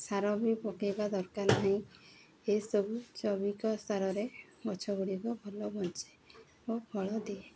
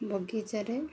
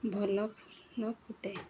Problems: none marked